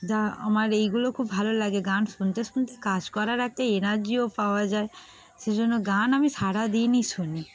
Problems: background sounds at intervals, background conversations at intervals